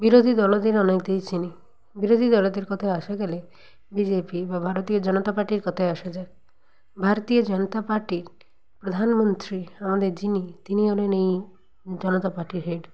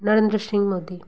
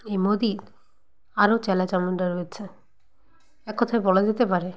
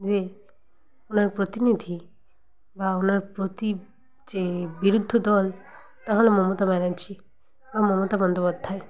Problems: background conversations at intervals